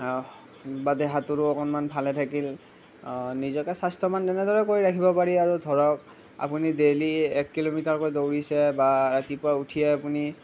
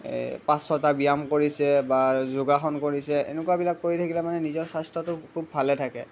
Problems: none marked